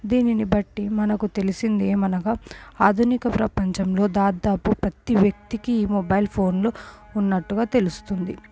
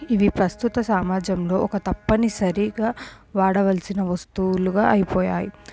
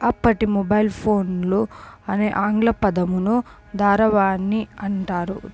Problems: background sounds at intervals